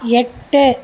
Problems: background conversations at intervals